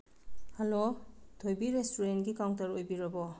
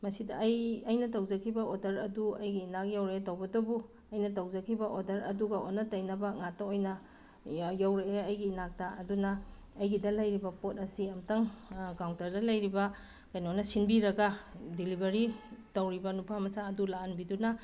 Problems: background sounds at intervals